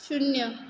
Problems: background sounds at intervals